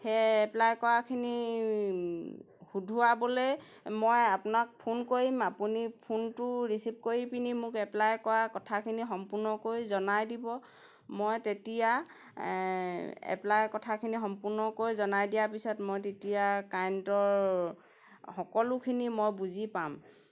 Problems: background sounds at intervals